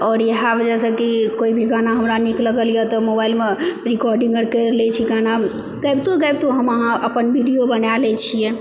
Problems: background sounds at intervals